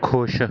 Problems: none marked